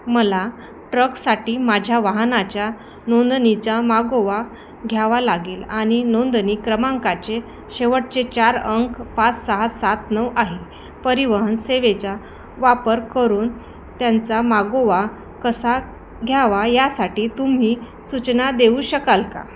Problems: constant background noise